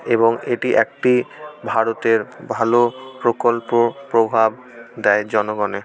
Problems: background sounds at intervals, background conversations at intervals